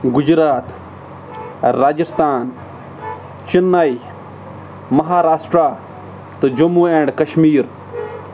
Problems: constant background noise